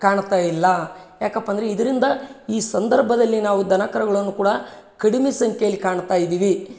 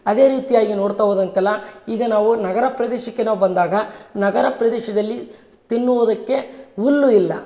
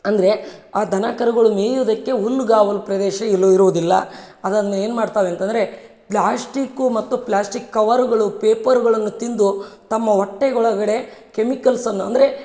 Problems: none marked